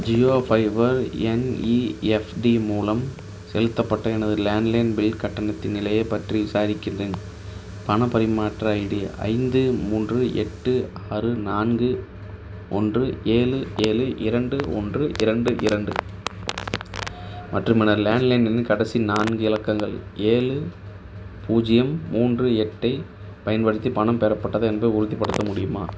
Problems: background sounds at intervals